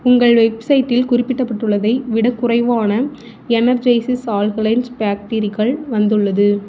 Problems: none marked